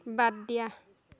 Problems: continuous background conversations